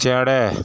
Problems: constant background noise